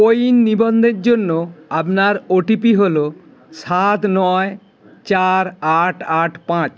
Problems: constant background noise, background conversations at intervals